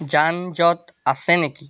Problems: none marked